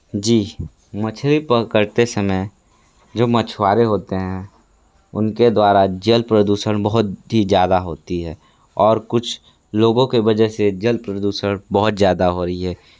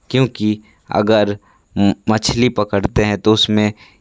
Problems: none marked